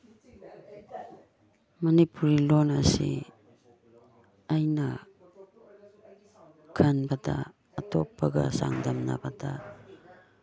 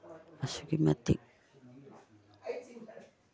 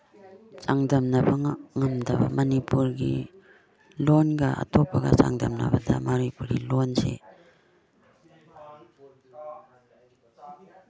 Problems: background sounds at intervals, background conversations at intervals